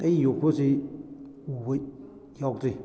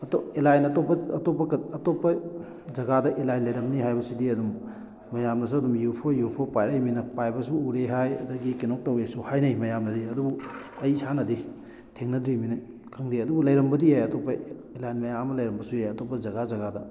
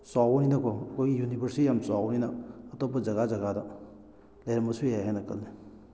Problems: background sounds at intervals